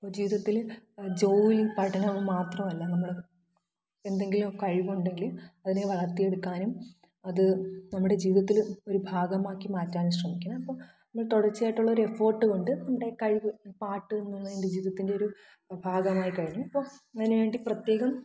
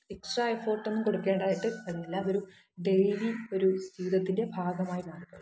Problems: echo, low volume